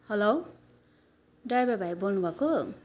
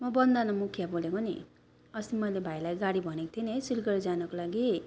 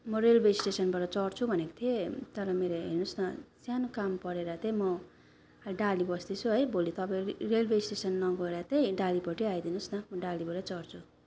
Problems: background sounds at intervals